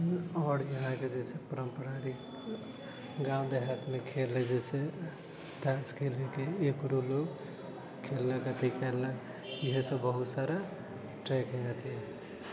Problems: none marked